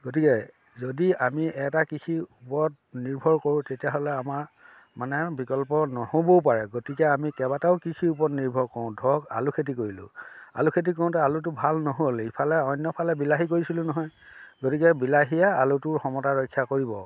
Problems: none marked